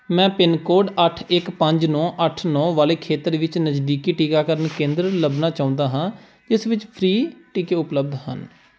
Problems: background sounds at intervals